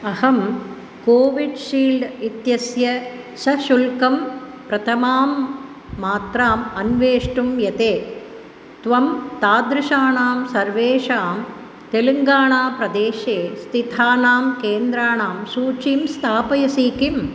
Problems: constant background noise